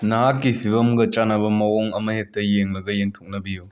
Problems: background sounds at intervals